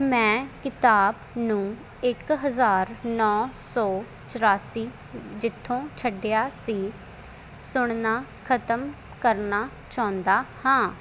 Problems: none marked